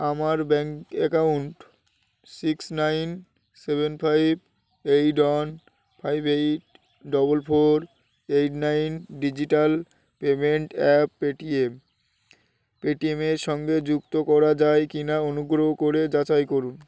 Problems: constant background noise